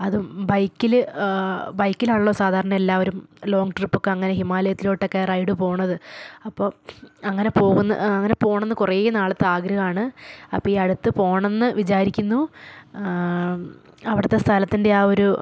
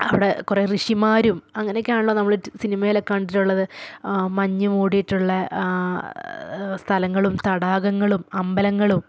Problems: none marked